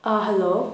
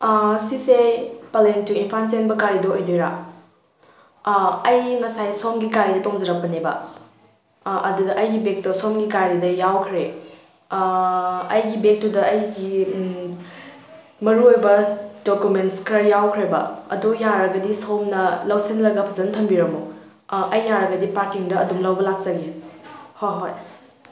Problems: background conversations at intervals